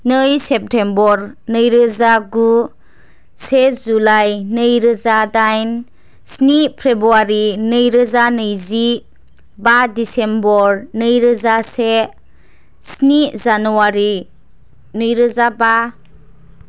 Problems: background sounds at intervals